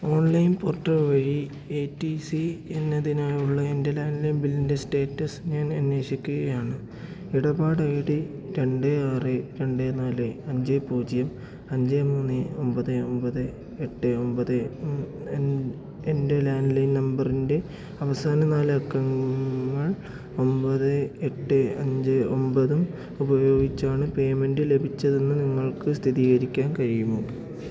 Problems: low volume